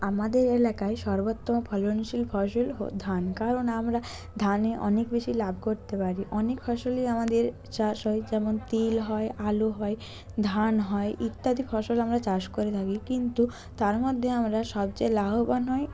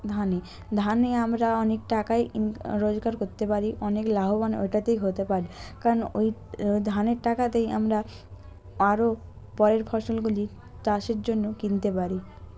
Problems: continuous background conversations